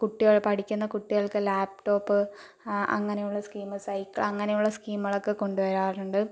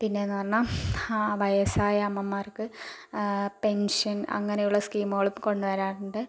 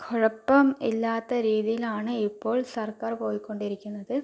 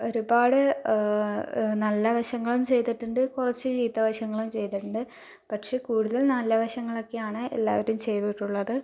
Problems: low volume